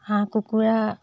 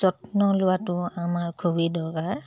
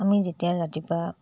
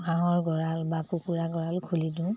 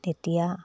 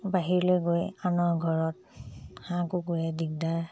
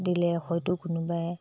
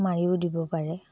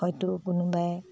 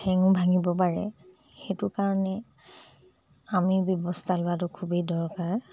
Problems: low volume